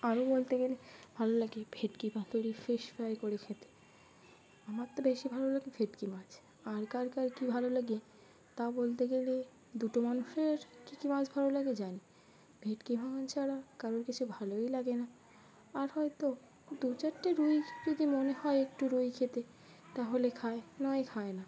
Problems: background sounds at intervals, continuous background conversations